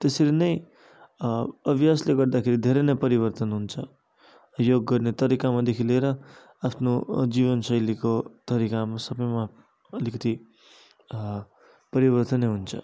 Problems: none marked